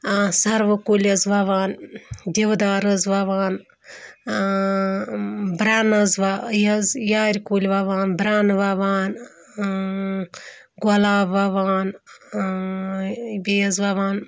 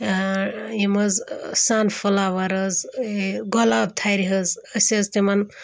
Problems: background sounds at intervals